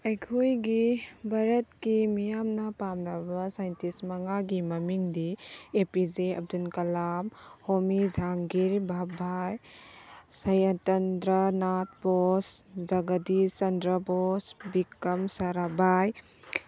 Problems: none marked